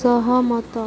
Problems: constant background noise